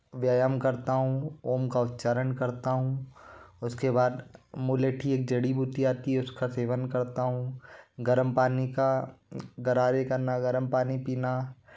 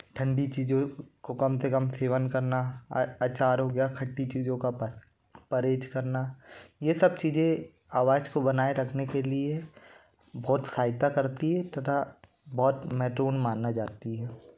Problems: constant background noise